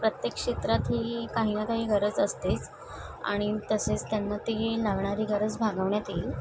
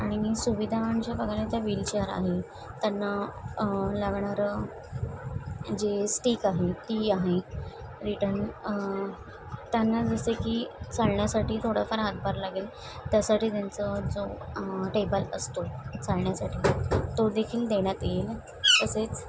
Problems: constant background noise, background conversations at intervals